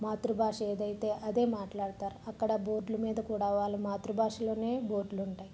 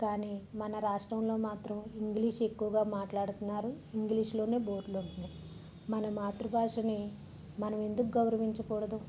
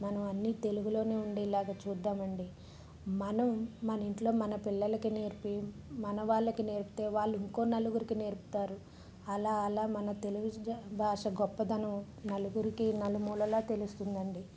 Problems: low volume